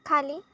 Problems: none marked